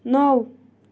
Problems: constant background noise